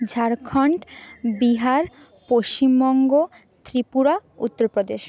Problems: background sounds at intervals